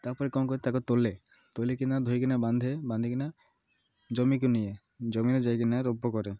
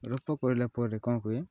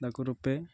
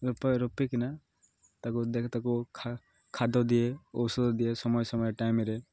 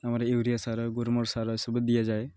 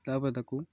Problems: none marked